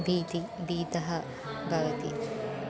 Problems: none marked